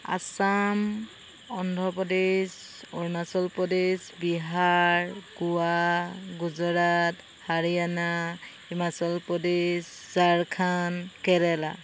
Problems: constant background noise